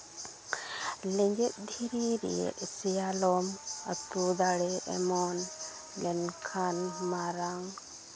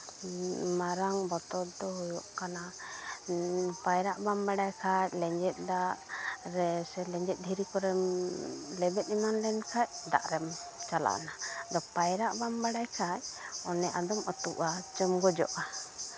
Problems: constant background noise, background conversations at intervals